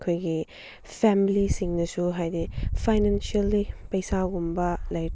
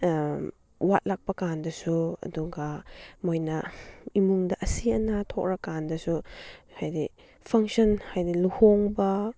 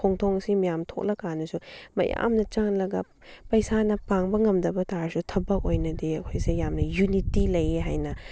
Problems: none marked